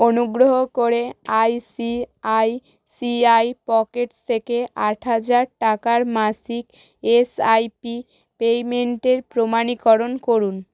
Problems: none marked